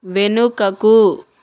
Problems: none marked